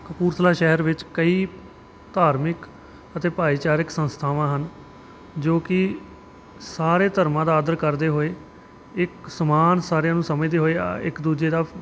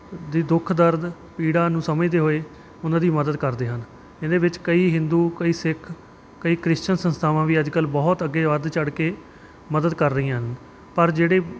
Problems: none marked